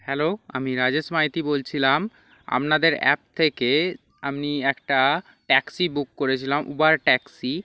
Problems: background sounds at intervals